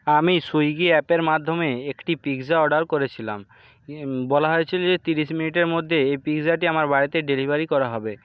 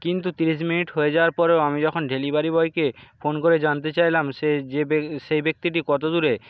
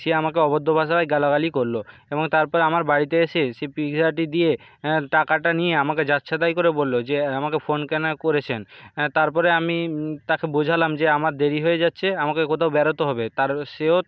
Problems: background sounds at intervals